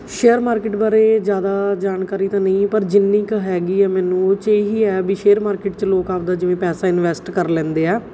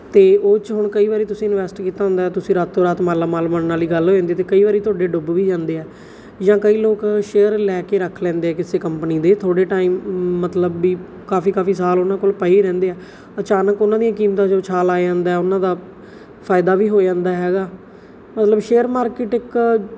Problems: background sounds at intervals